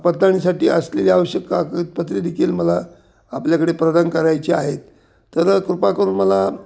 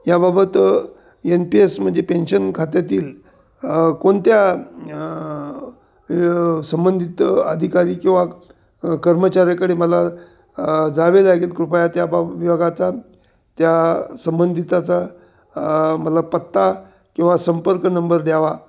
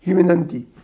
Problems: none marked